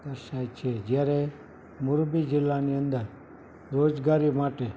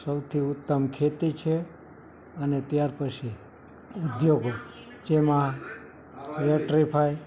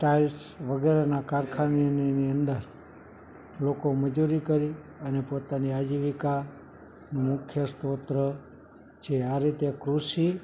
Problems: background sounds at intervals, background conversations at intervals